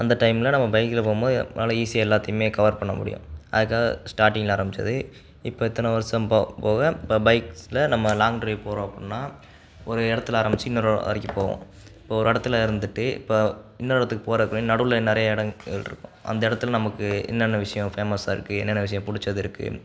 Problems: background sounds at intervals